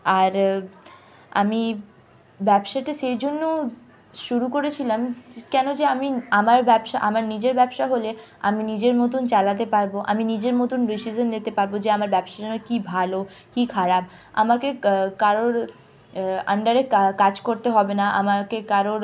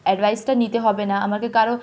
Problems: none marked